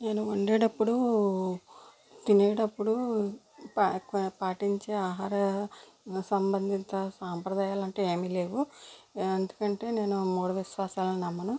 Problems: none marked